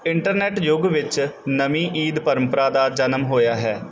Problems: background sounds at intervals